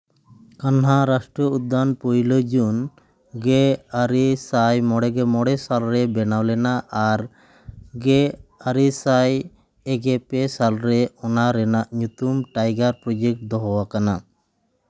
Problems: echo